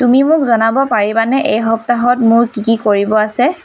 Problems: constant background noise